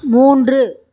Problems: background sounds at intervals